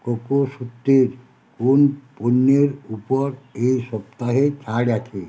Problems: constant background noise